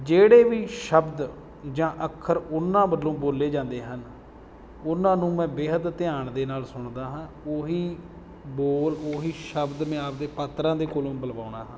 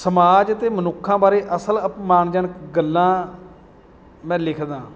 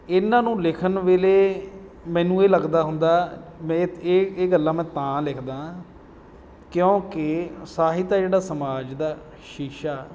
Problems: none marked